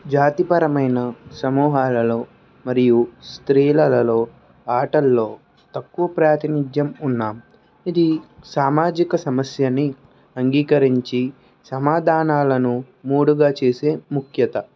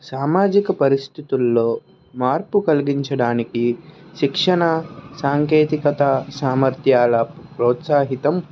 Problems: background sounds at intervals, background conversations at intervals